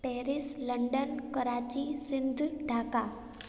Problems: echo